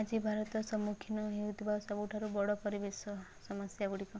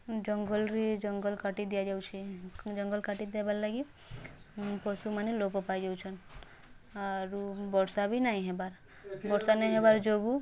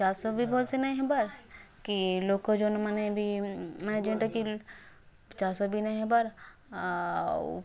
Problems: background sounds at intervals, background conversations at intervals